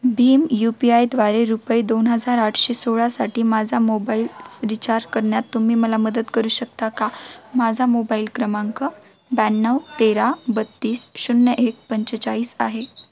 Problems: constant background noise, background conversations at intervals